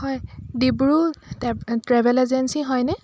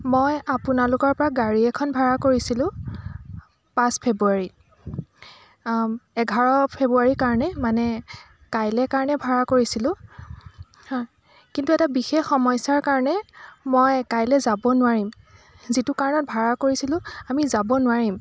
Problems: none marked